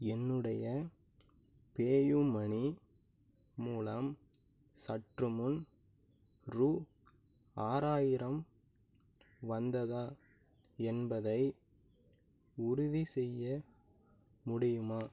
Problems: low volume